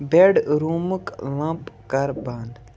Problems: constant background noise